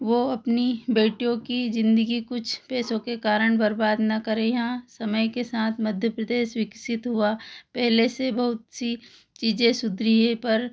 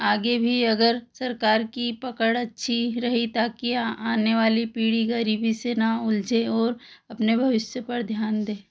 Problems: none marked